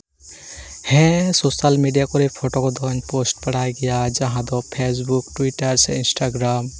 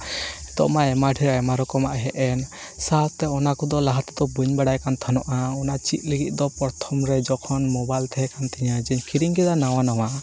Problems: constant background noise